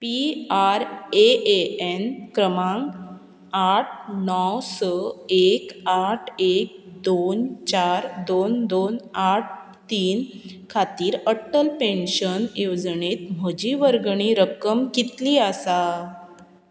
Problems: constant background noise